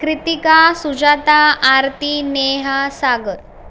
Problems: constant background noise